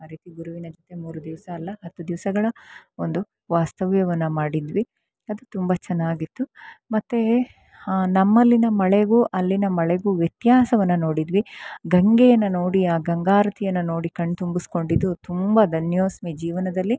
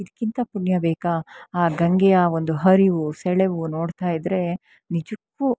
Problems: none marked